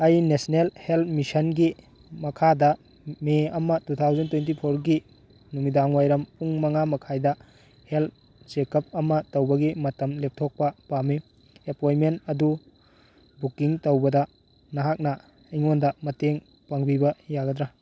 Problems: none marked